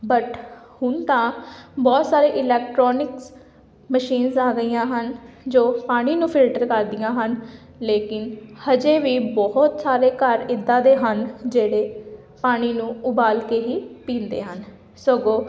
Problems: background sounds at intervals